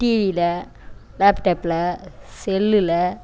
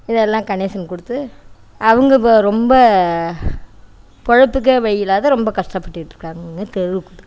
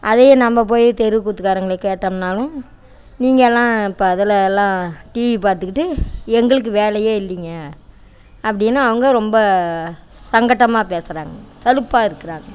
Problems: none marked